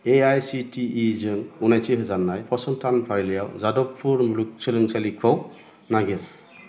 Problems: constant background noise